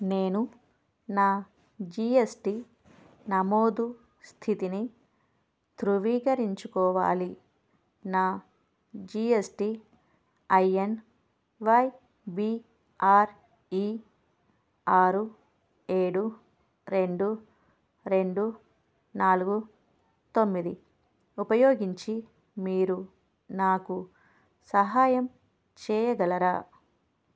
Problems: none marked